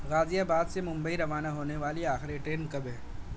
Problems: constant background noise